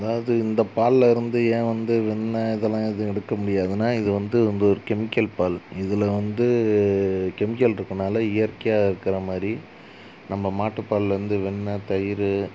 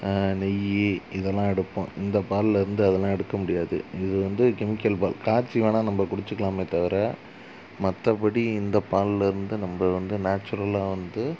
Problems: constant background noise